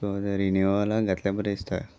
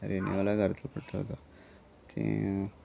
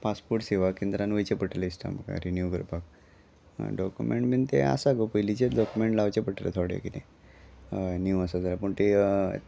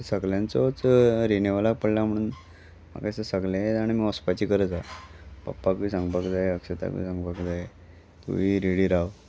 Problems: constant background noise